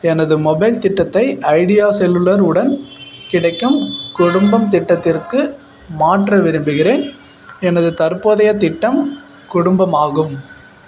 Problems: none marked